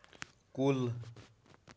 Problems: background sounds at intervals